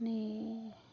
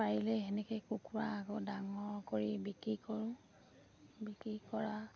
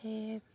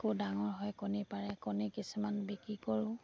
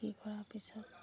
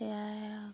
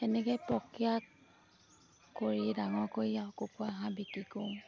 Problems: background sounds at intervals